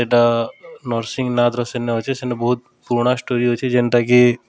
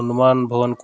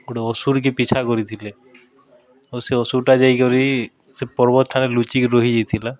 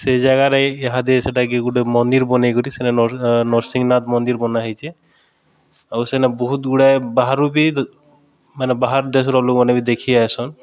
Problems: background conversations at intervals